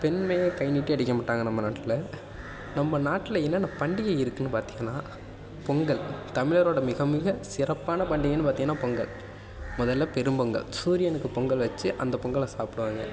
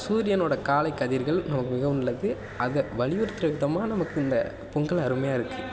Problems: constant background noise